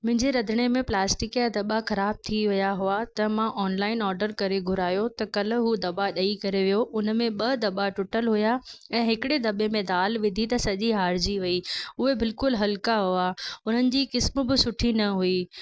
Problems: none marked